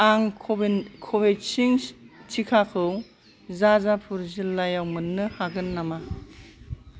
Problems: constant background noise